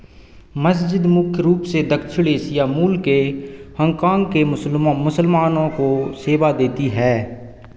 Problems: echo